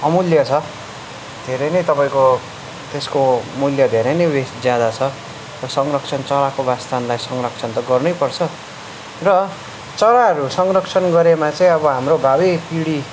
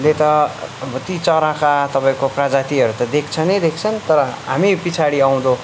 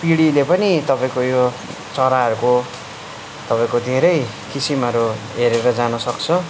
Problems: background conversations at intervals